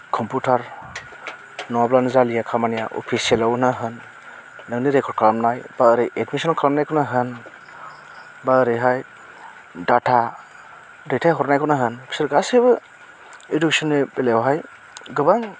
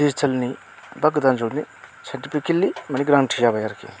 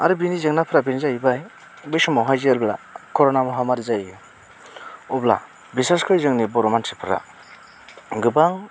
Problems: constant background noise